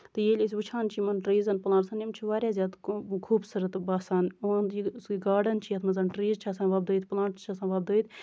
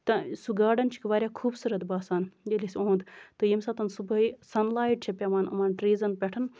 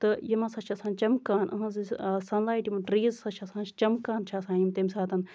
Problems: none marked